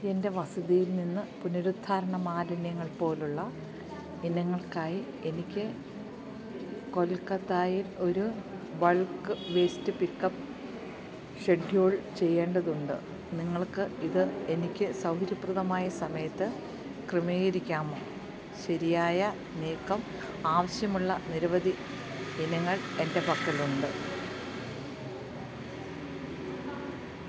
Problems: background sounds at intervals